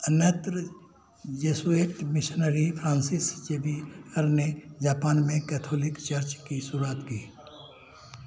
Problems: constant background noise